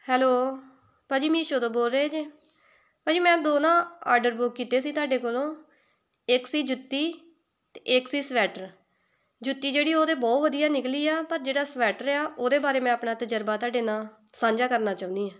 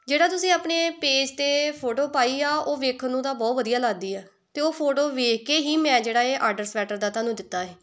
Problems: none marked